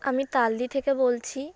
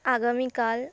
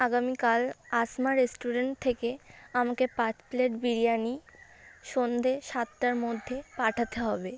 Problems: constant background noise